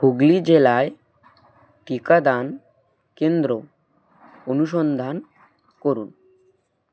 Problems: constant background noise